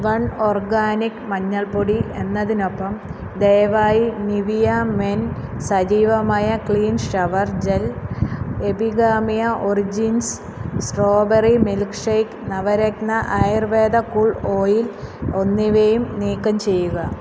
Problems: background sounds at intervals